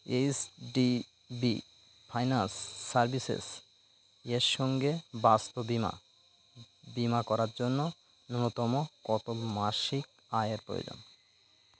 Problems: constant background noise